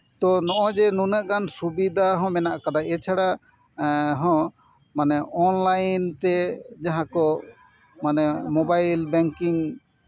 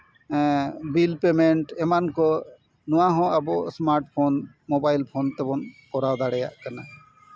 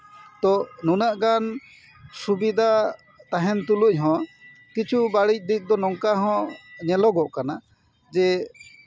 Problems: none marked